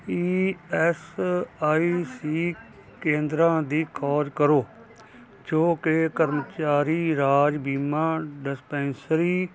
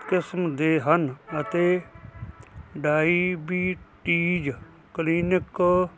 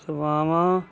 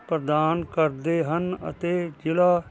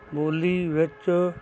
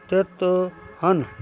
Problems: continuous background conversations